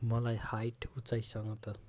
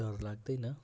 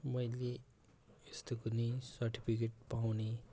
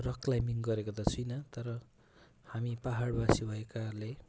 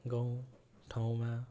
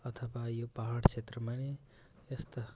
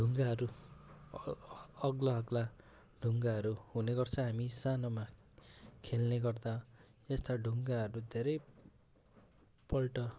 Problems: constant background noise